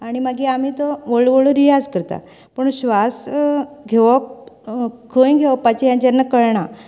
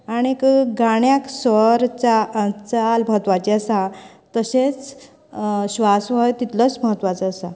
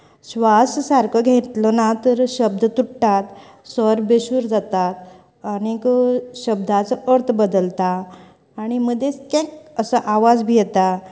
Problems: background conversations at intervals